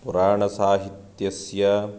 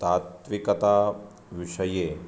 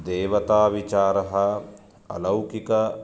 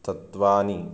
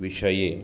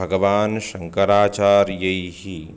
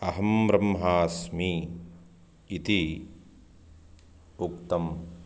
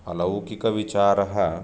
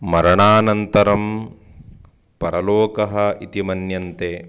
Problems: none marked